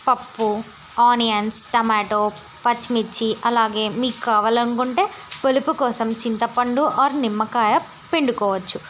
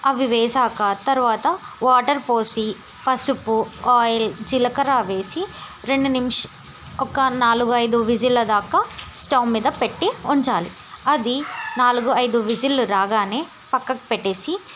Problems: constant background noise